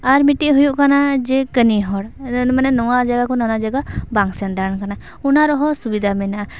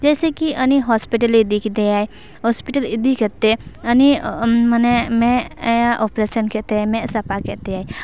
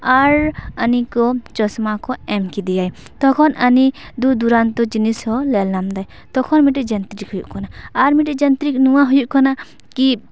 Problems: constant background noise